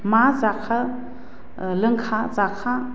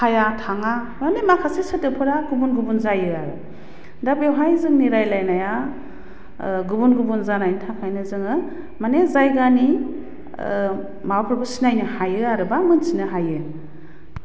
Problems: low volume